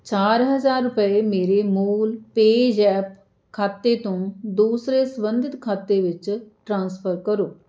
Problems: none marked